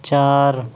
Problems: constant background noise